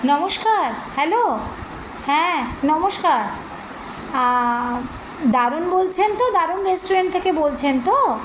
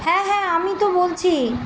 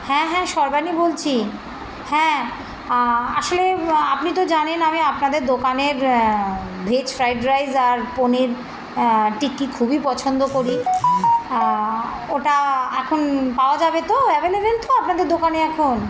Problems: constant background noise, continuous background conversations